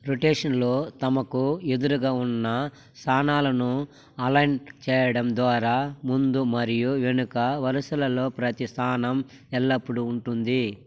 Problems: constant background noise